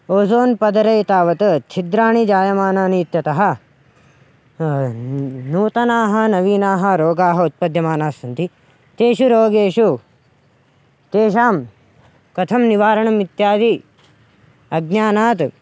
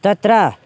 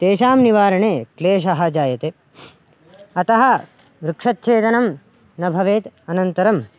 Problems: background sounds at intervals